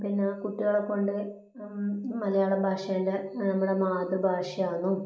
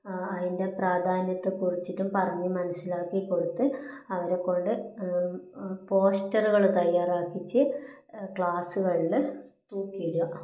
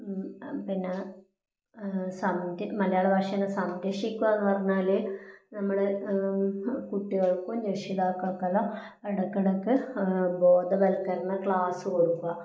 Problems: low volume